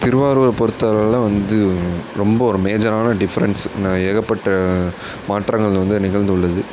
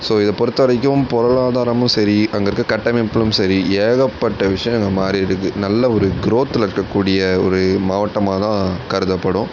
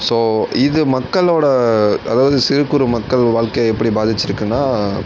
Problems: none marked